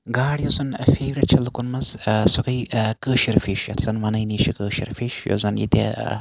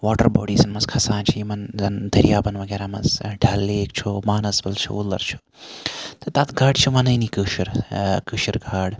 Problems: background sounds at intervals